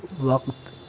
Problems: constant background noise